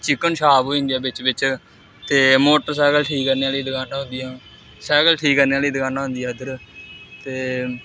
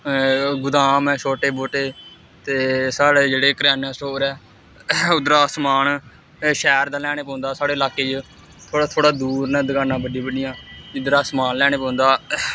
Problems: constant background noise